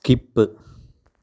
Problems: low volume